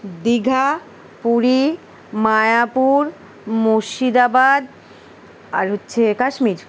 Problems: constant background noise